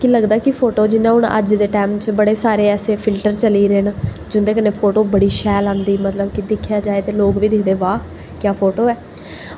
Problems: echo